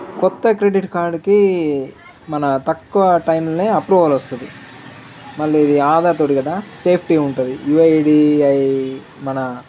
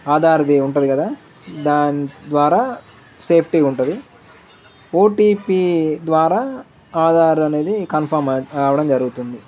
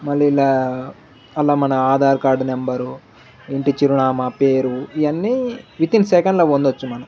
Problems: none marked